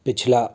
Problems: constant background noise